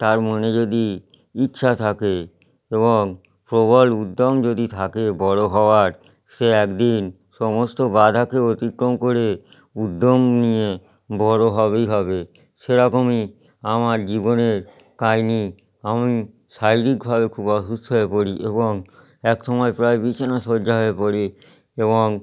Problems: background sounds at intervals